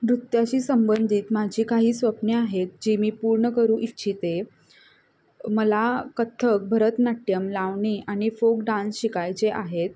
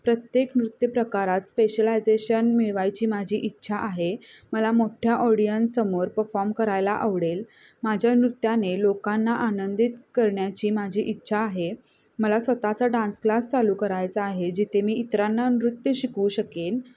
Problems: constant background noise, background conversations at intervals